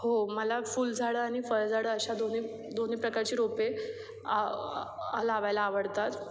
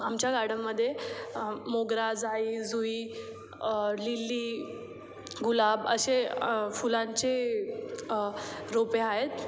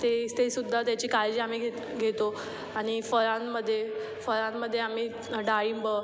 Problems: none marked